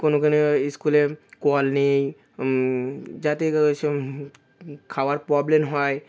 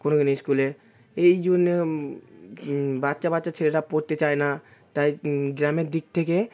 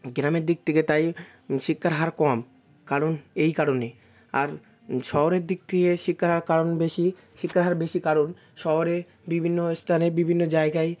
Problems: constant background noise, continuous background conversations